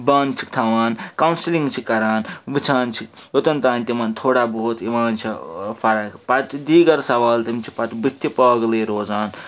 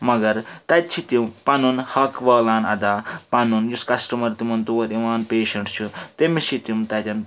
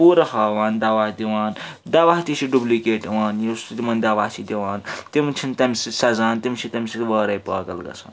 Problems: constant background noise